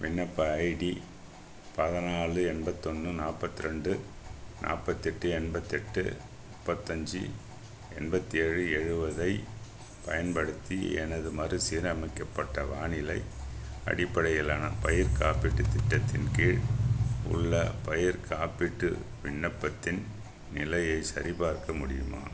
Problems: constant background noise